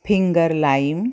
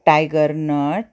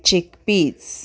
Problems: none marked